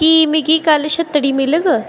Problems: constant background noise